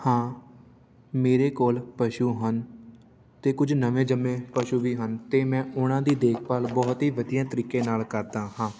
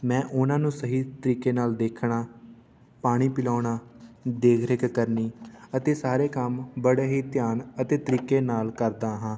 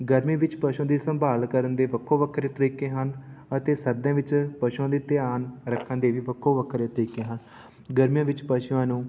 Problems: none marked